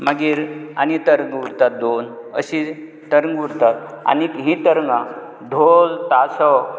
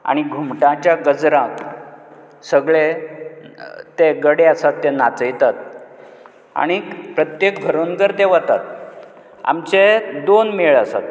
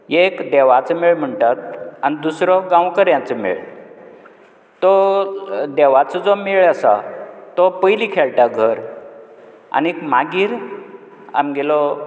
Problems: none marked